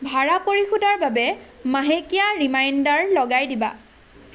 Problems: constant background noise